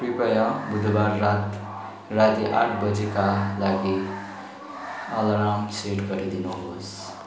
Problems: background sounds at intervals, background conversations at intervals